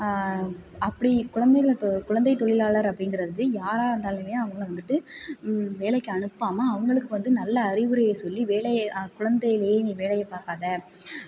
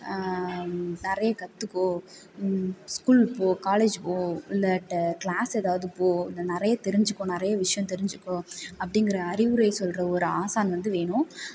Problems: background conversations at intervals